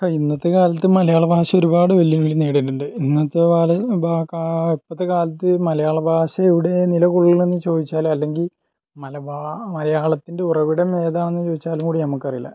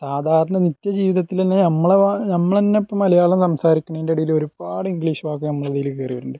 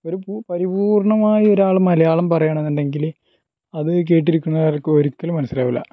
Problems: low volume